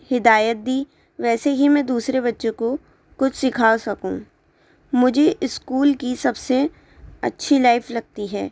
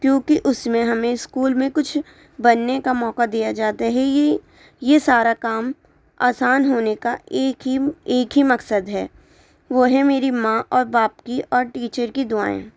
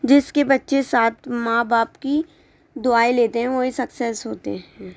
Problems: none marked